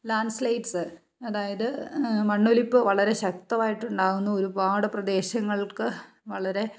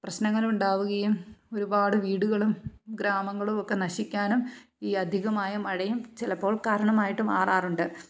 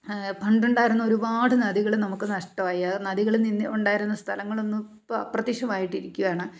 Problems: none marked